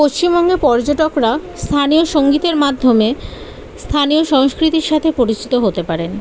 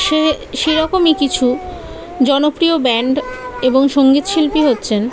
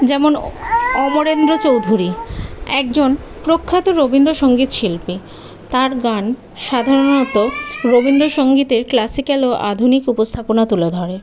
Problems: constant background noise, continuous background conversations